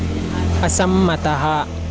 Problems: constant background noise